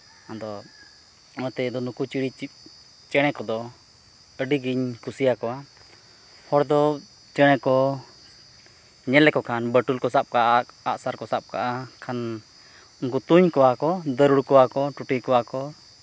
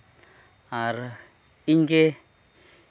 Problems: constant background noise